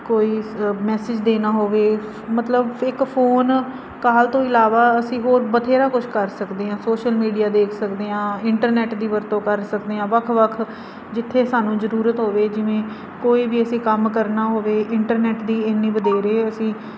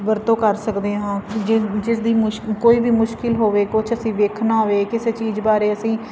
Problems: constant background noise